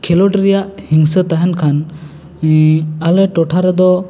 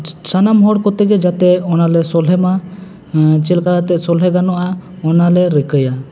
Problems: constant background noise, background conversations at intervals